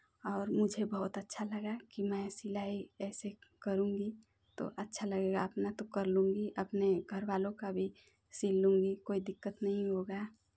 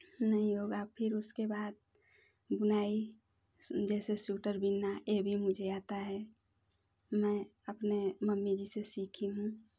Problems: none marked